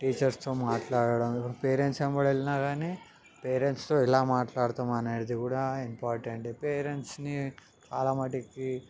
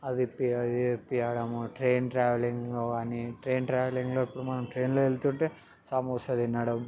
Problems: background sounds at intervals